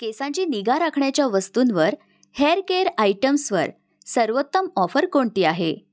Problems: background sounds at intervals